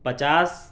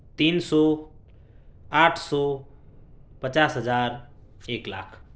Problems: background sounds at intervals, low volume